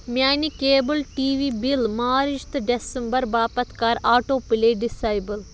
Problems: constant background noise